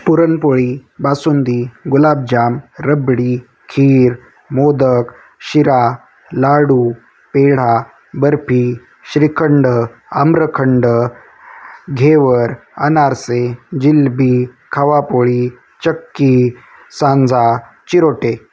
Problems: constant background noise